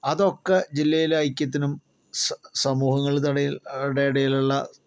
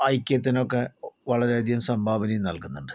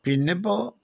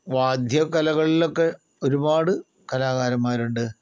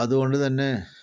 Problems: low volume